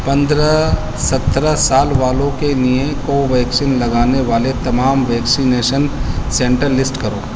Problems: constant background noise